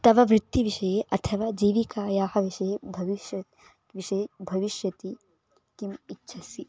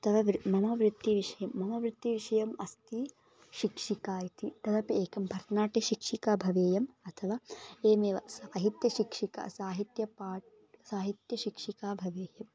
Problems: background conversations at intervals